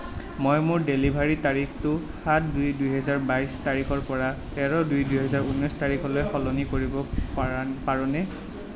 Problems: constant background noise